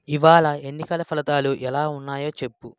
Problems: none marked